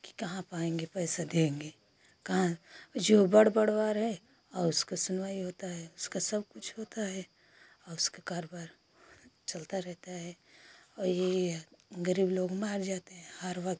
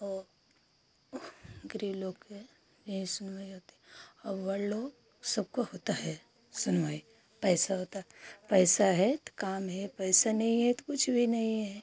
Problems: constant background noise